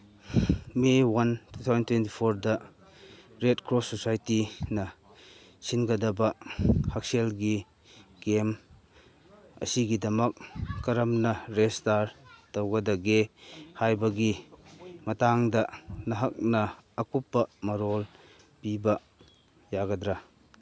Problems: constant background noise, background conversations at intervals